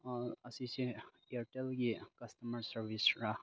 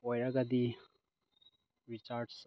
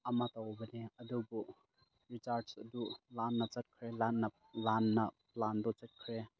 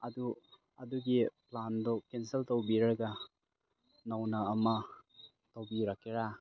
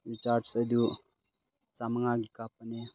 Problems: background sounds at intervals